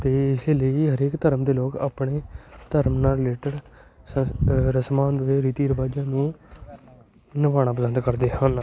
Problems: constant background noise, continuous background conversations